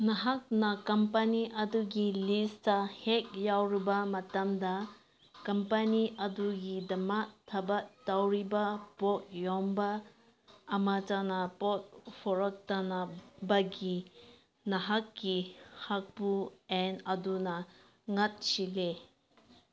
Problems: background sounds at intervals